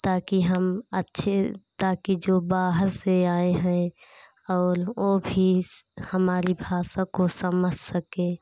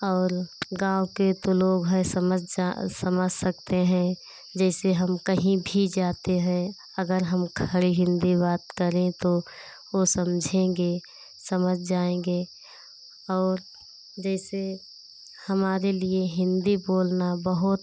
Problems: constant background noise